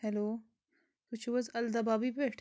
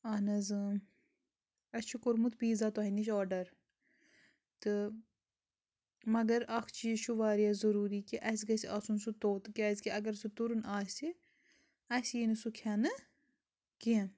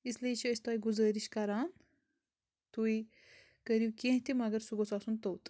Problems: background sounds at intervals